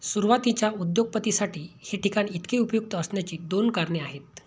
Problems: none marked